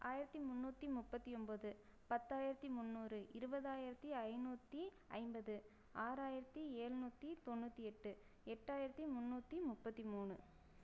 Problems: low volume